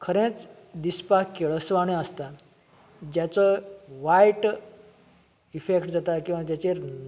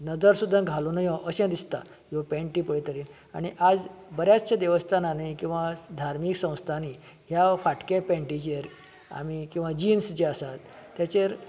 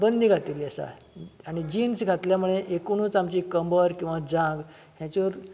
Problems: constant background noise